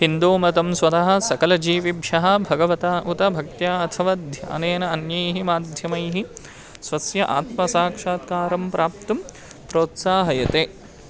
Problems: constant background noise